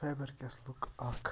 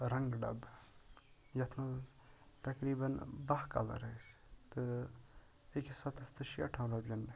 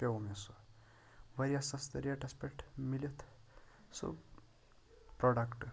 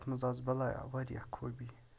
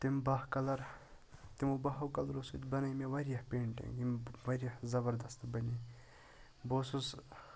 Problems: constant background noise